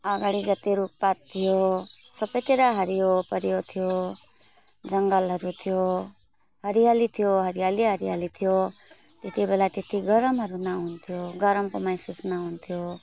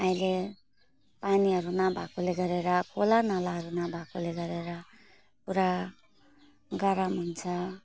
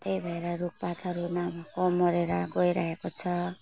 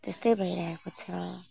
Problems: constant background noise